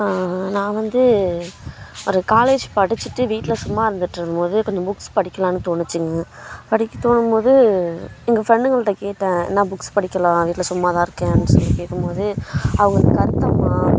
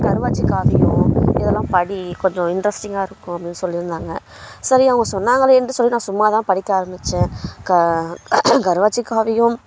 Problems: constant background noise